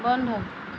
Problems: constant background noise